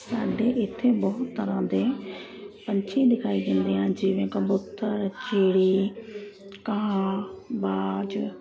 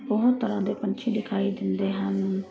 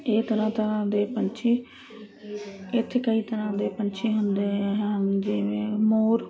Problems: constant background noise